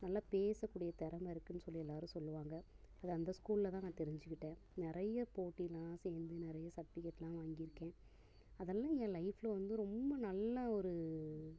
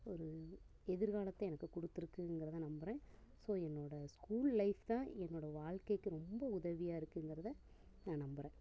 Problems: constant background noise